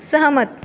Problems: constant background noise